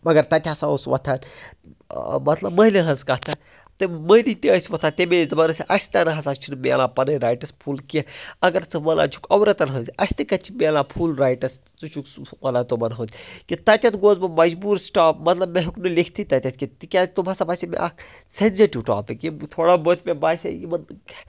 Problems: background sounds at intervals